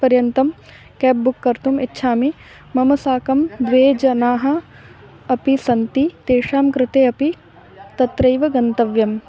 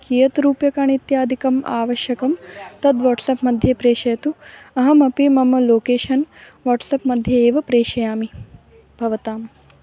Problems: constant background noise, background conversations at intervals